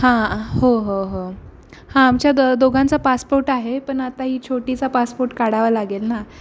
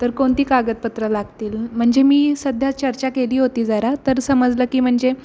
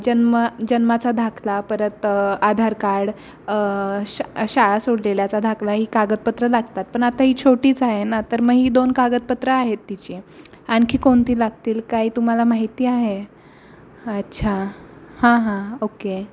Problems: none marked